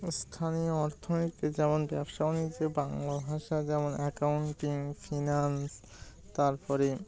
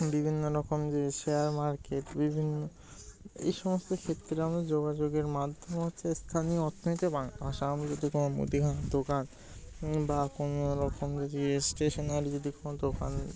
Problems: none marked